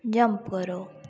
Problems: low volume